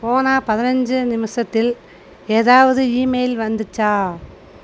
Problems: constant background noise